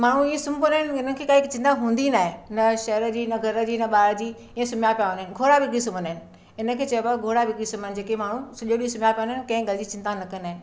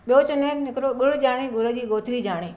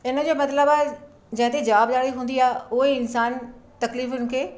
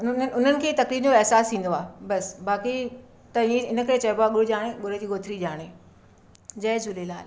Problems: none marked